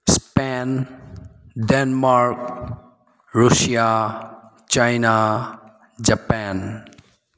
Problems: background sounds at intervals